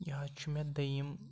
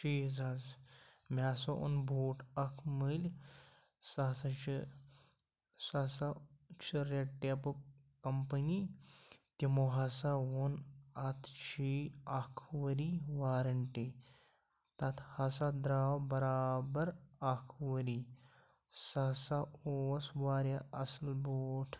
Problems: low volume